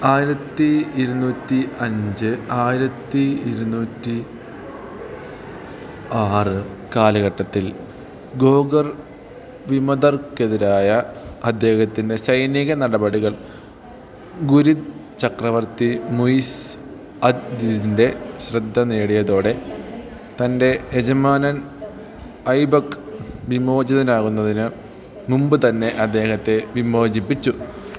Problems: none marked